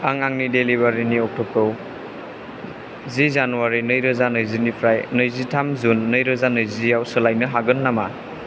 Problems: constant background noise